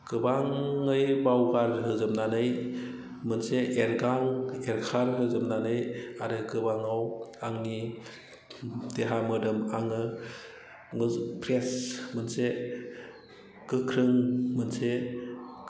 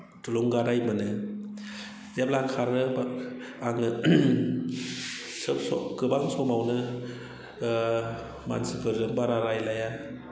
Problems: none marked